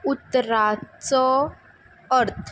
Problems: constant background noise